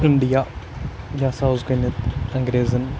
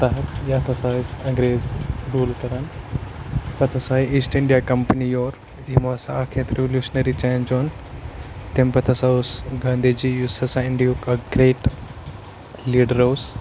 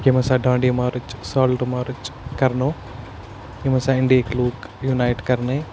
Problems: constant background noise